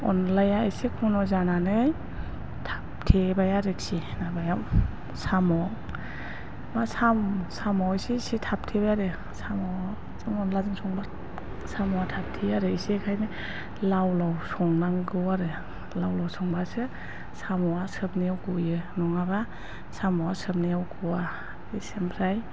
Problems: constant background noise